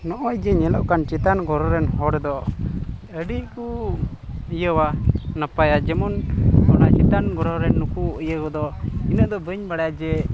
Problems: background sounds at intervals